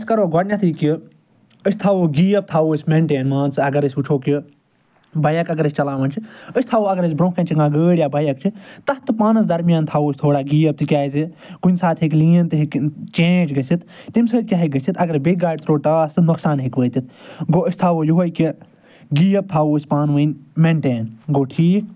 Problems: none marked